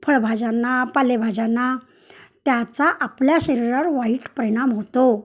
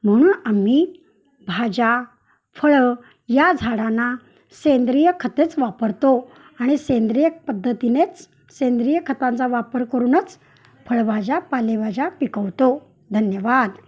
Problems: background sounds at intervals, background conversations at intervals